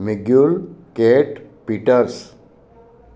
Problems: constant background noise, echo